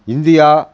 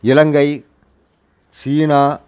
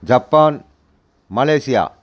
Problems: constant background noise